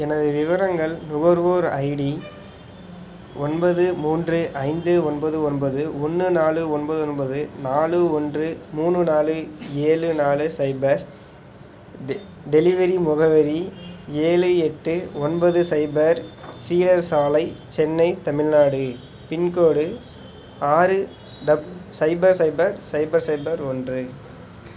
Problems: background sounds at intervals